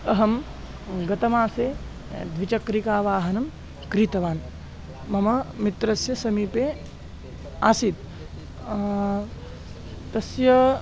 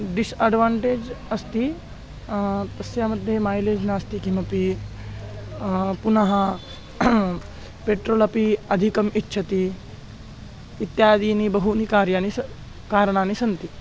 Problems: constant background noise